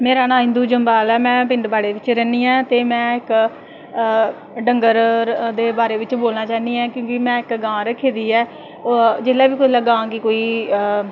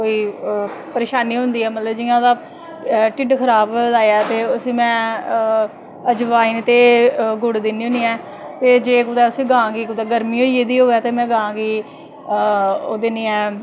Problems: constant background noise